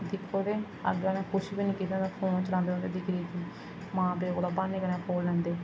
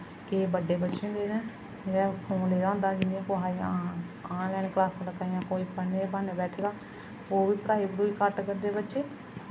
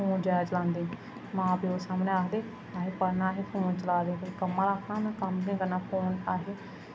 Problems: constant background noise, echo